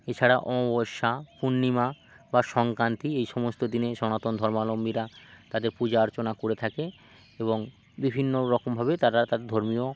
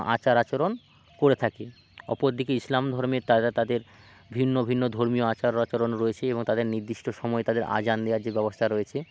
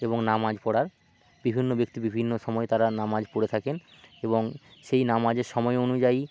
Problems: constant background noise